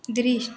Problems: constant background noise